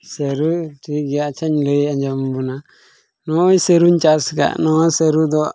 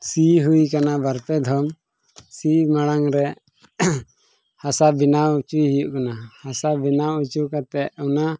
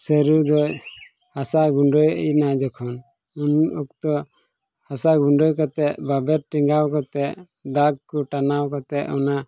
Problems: background sounds at intervals